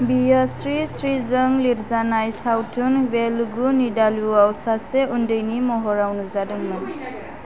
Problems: constant background noise